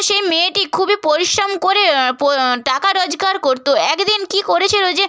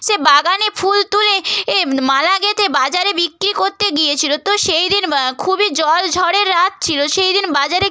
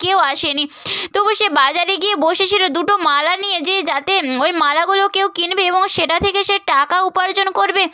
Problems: none marked